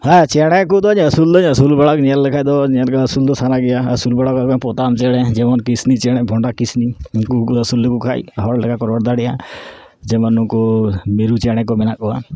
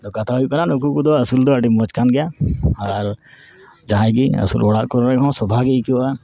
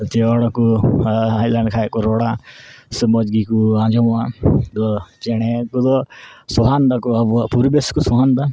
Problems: none marked